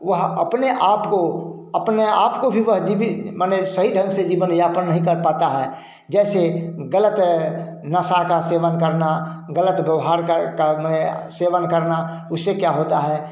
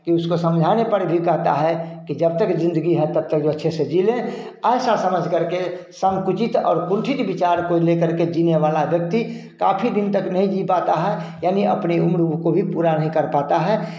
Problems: none marked